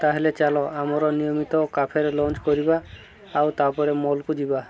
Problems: constant background noise